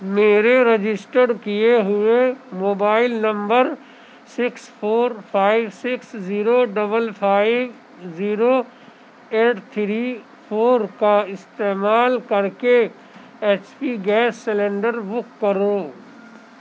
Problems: constant background noise